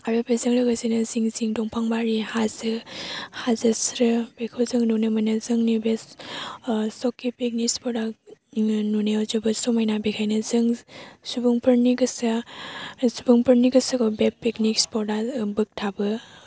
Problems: low volume